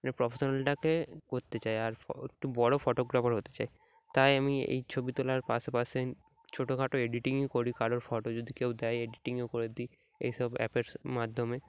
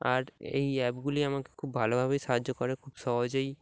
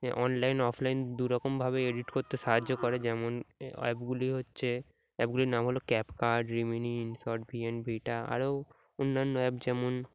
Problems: background sounds at intervals